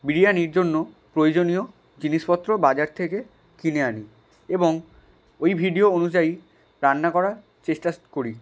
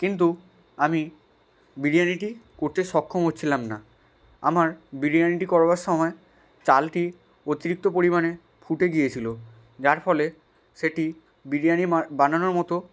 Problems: background sounds at intervals